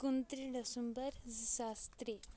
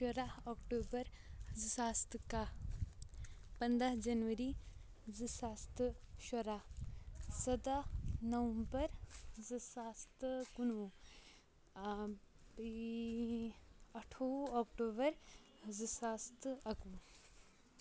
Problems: constant background noise